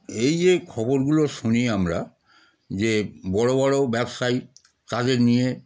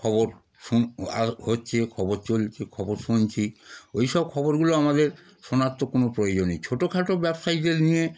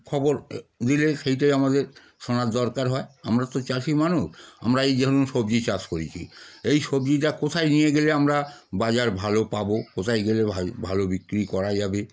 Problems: constant background noise